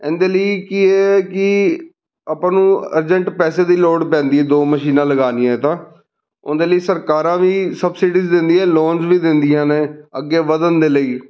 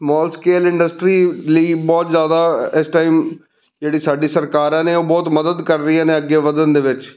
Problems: none marked